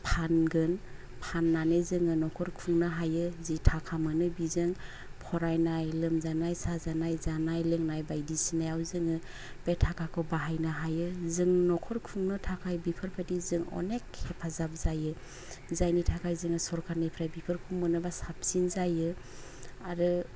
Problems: low volume